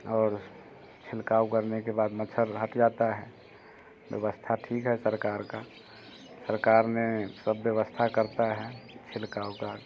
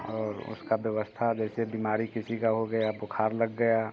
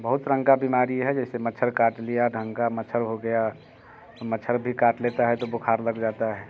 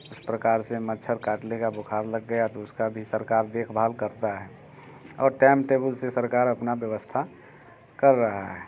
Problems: constant background noise